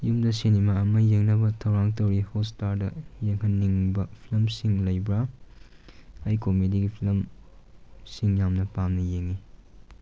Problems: background sounds at intervals